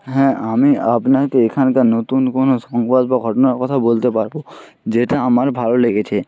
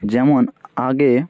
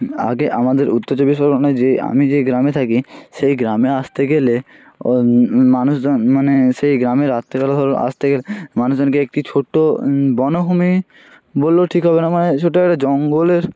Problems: none marked